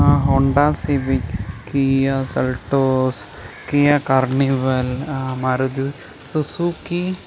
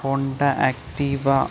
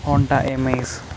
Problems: constant background noise